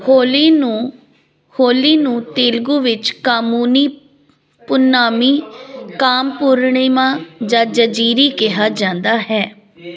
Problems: continuous background conversations